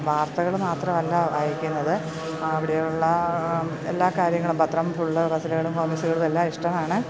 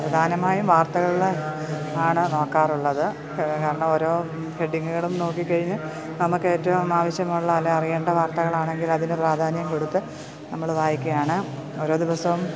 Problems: constant background noise